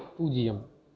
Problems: none marked